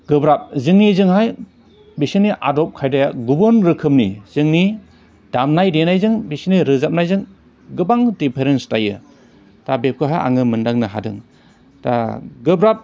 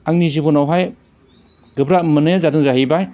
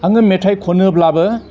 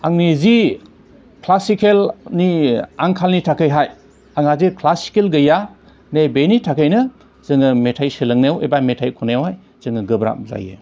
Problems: none marked